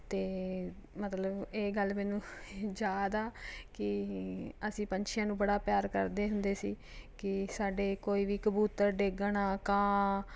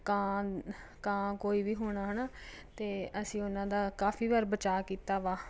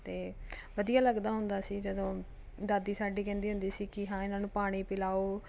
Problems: none marked